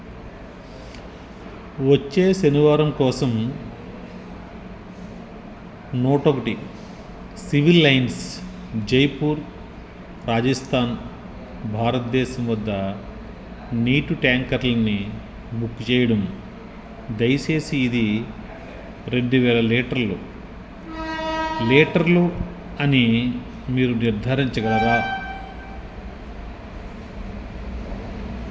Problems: background sounds at intervals